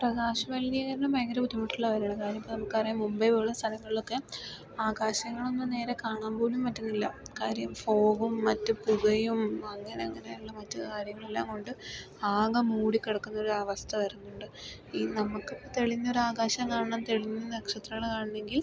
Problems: background sounds at intervals, low volume